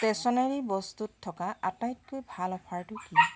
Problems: constant background noise